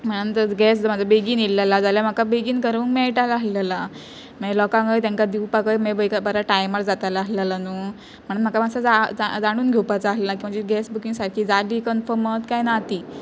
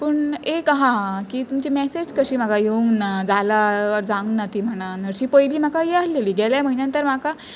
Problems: constant background noise